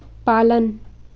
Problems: constant background noise